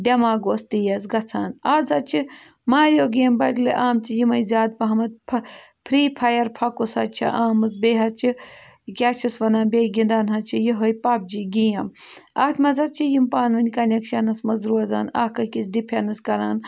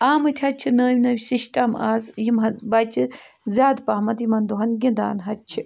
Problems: background sounds at intervals